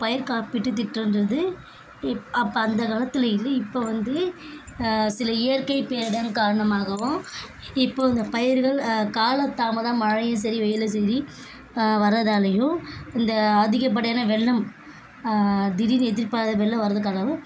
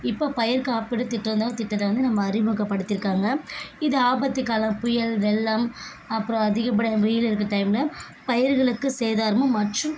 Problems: constant background noise